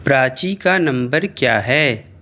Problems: none marked